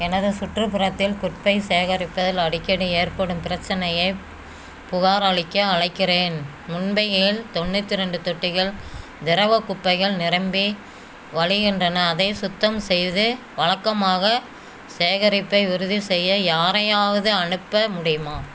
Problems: none marked